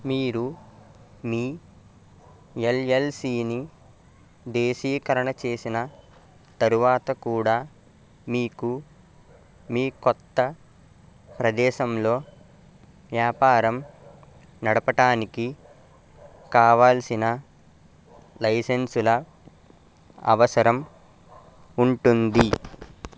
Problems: constant background noise